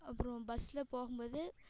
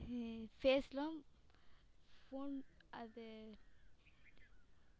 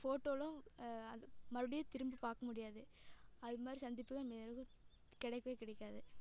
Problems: echo